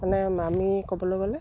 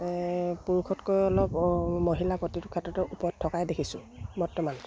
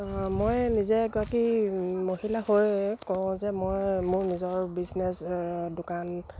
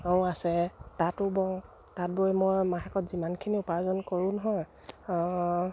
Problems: none marked